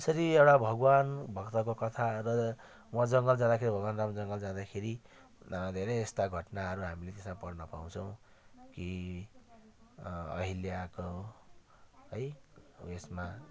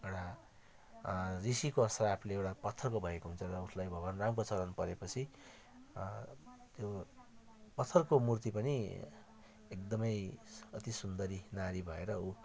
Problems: continuous background conversations